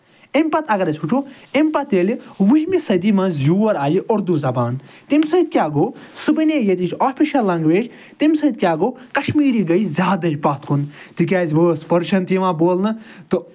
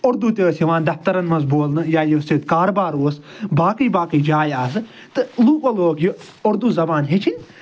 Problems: none marked